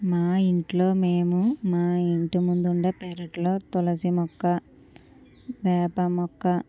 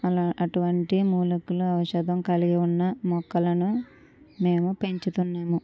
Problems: none marked